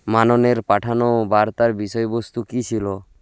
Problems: none marked